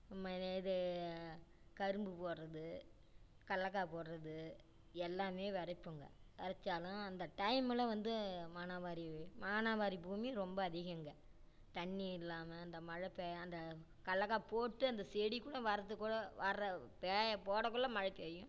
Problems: low volume